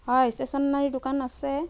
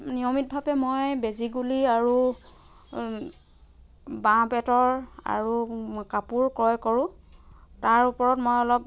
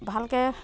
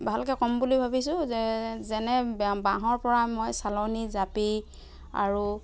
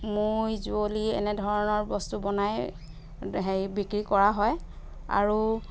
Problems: background sounds at intervals